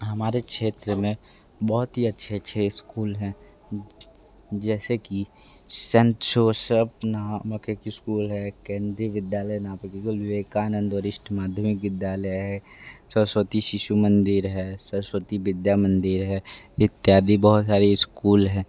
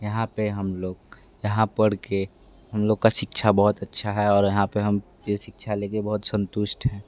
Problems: background sounds at intervals